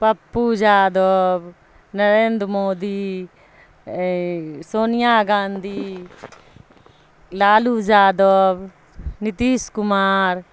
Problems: constant background noise